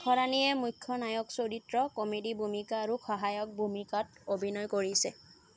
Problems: constant background noise